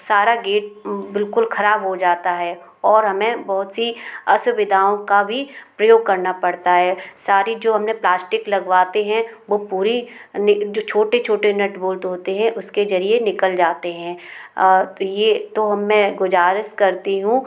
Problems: constant background noise